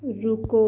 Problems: constant background noise